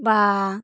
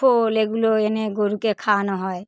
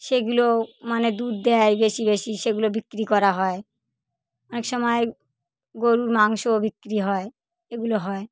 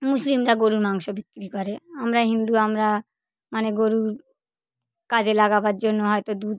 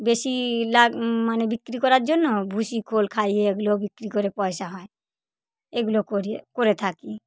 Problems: none marked